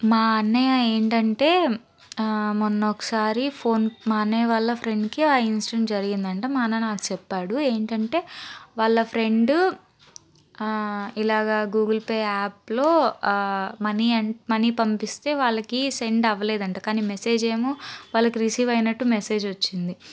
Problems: background sounds at intervals